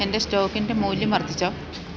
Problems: none marked